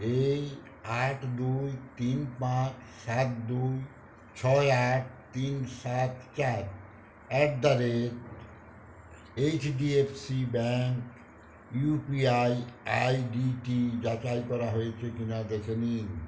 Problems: none marked